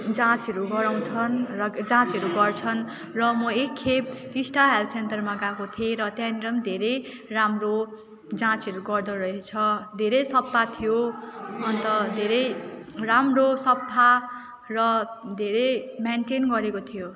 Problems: none marked